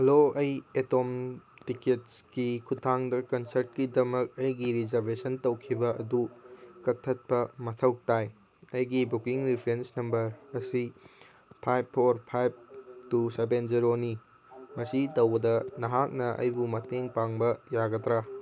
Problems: background sounds at intervals